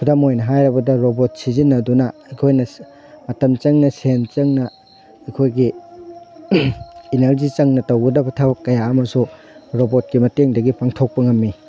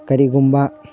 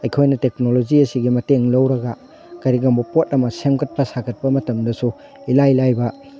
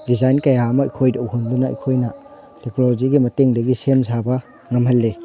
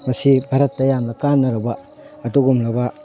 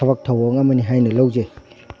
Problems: background sounds at intervals